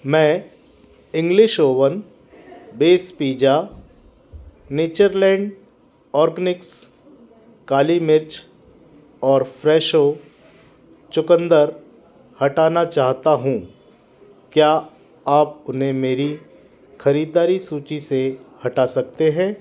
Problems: constant background noise